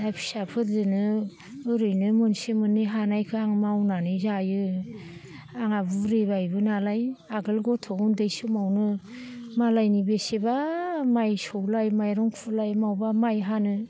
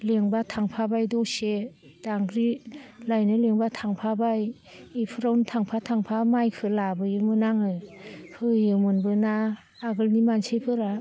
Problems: low volume